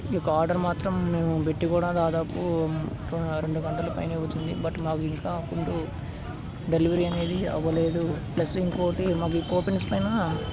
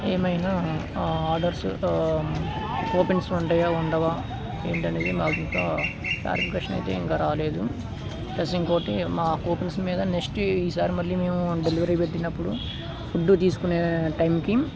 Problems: constant background noise